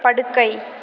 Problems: none marked